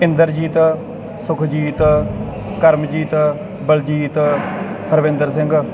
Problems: constant background noise